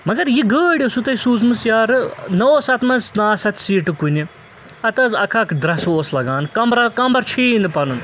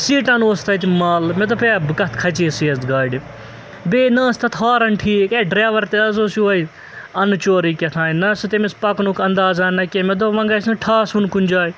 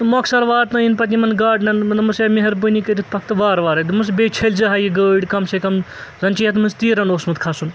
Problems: constant background noise